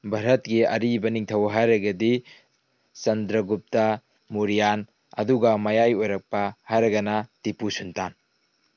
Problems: background sounds at intervals